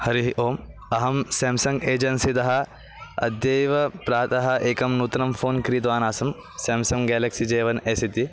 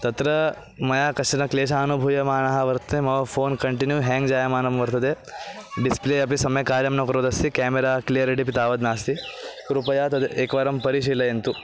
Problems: background sounds at intervals